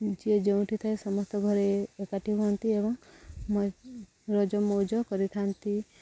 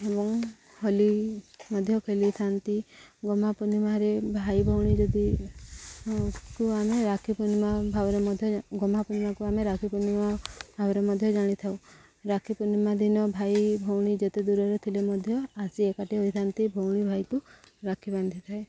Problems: low volume